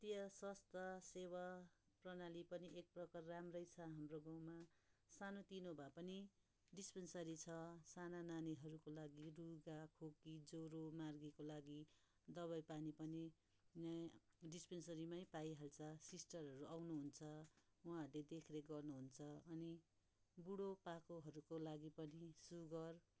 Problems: background sounds at intervals